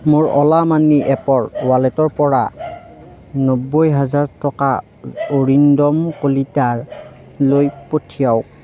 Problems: constant background noise, background conversations at intervals